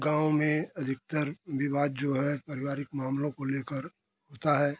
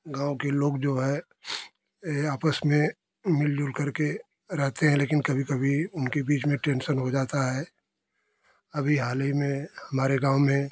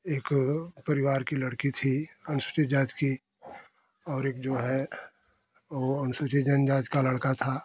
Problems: none marked